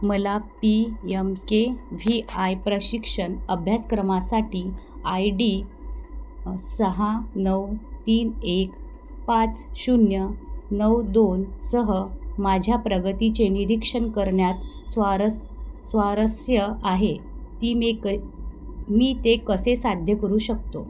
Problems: background sounds at intervals